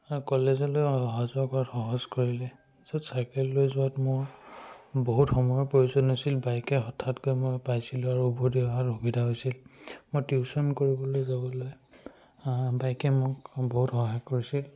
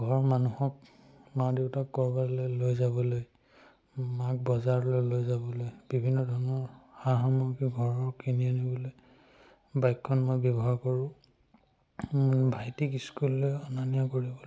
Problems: none marked